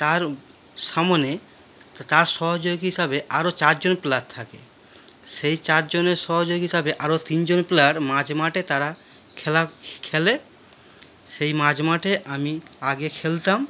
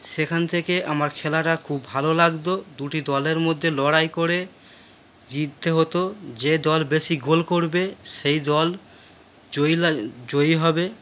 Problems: background sounds at intervals